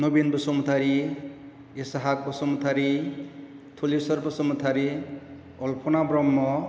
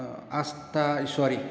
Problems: none marked